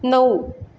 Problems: none marked